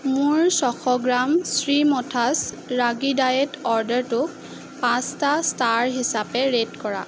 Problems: none marked